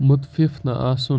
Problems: none marked